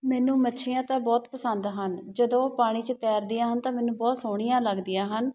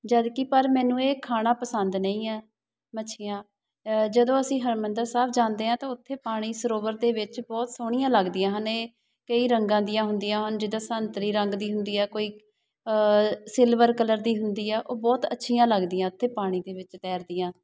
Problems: background sounds at intervals